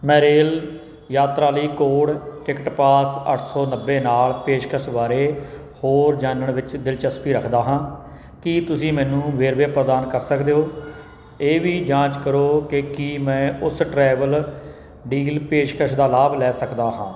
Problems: constant background noise